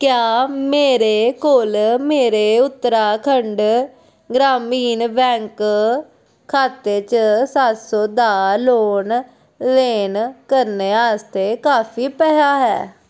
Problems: background sounds at intervals